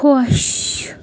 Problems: constant background noise